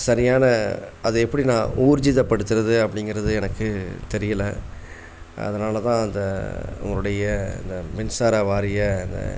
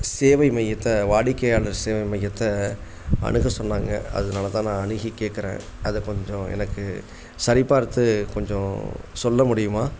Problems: constant background noise